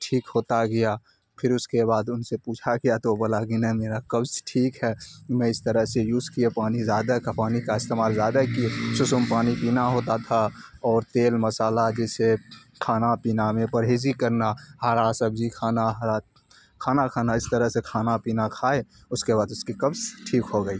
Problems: constant background noise